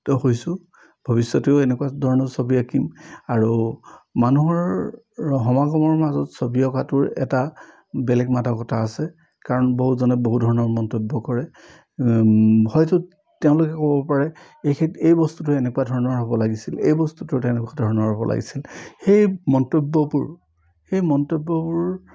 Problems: none marked